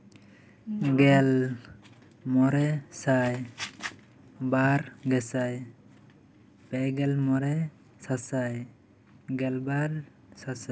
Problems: none marked